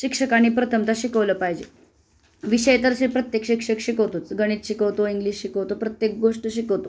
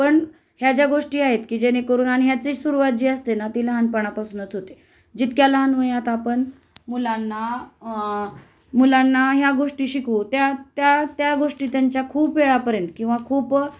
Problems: constant background noise